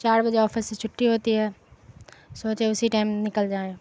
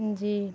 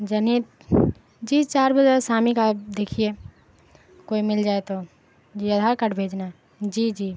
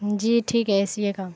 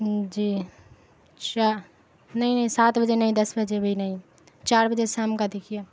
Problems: constant background noise